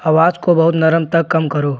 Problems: none marked